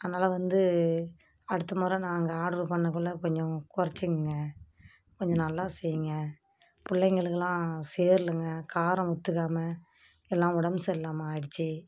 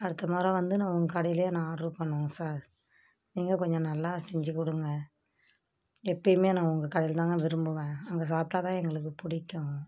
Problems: background sounds at intervals